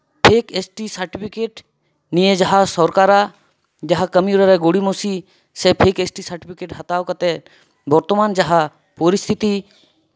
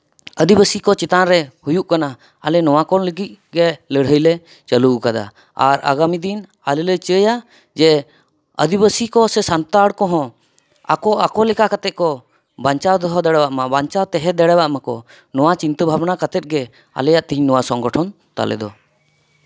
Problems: none marked